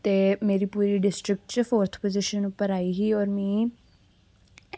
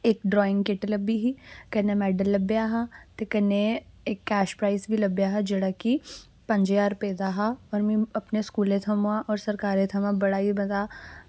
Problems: constant background noise